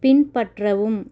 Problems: none marked